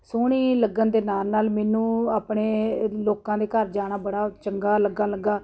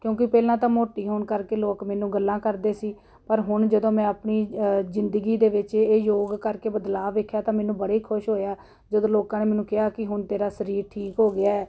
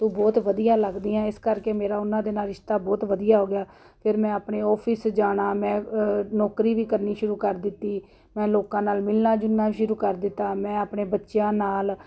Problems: none marked